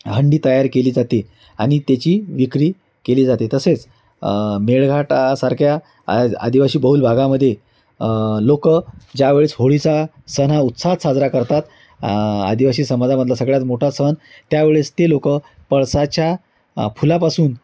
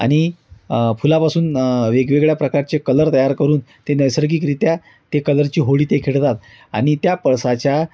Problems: constant background noise